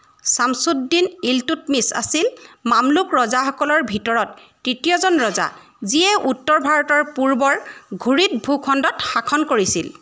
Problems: none marked